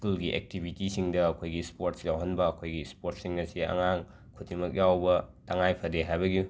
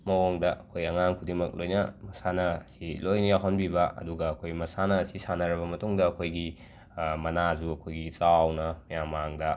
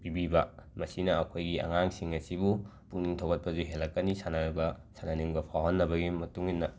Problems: none marked